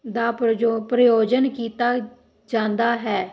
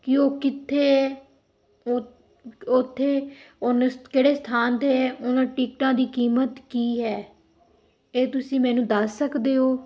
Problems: background sounds at intervals